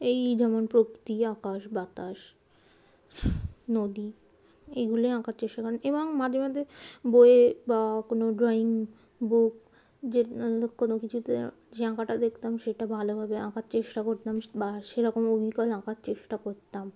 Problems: none marked